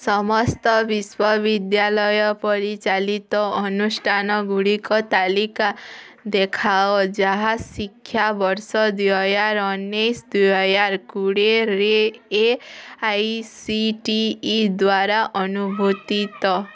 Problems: background sounds at intervals, background conversations at intervals